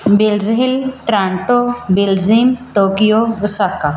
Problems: background sounds at intervals